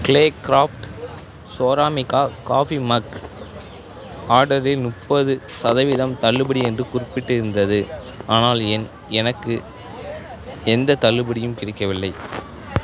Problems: continuous background conversations